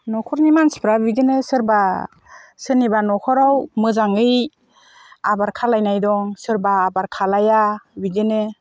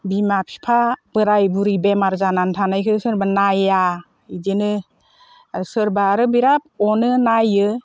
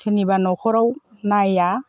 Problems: constant background noise